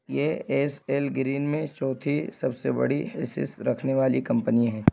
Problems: constant background noise